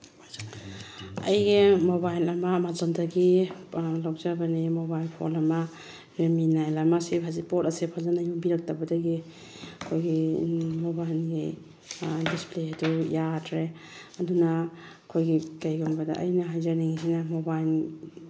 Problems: background sounds at intervals, background conversations at intervals